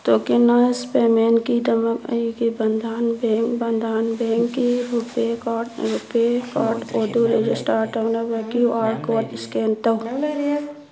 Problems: background sounds at intervals, continuous background conversations